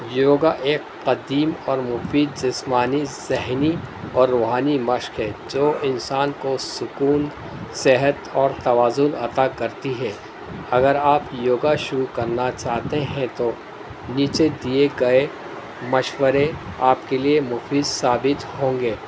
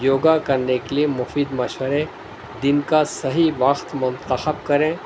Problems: constant background noise